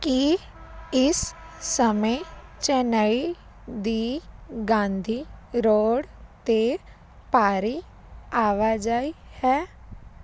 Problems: constant background noise